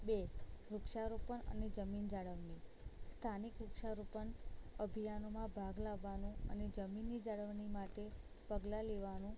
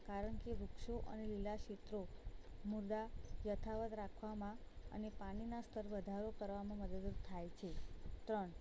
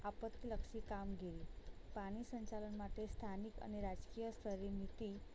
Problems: none marked